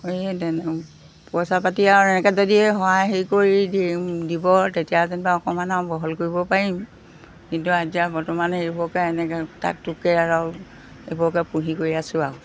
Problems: background sounds at intervals